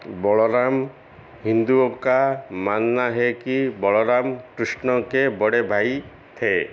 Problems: constant background noise, echo